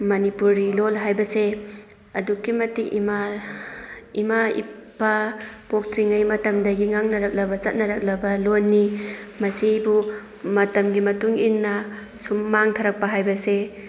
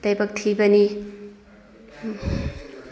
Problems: background sounds at intervals